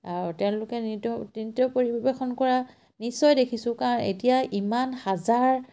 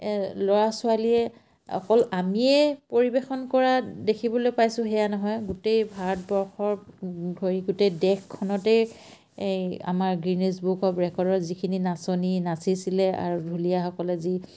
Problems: none marked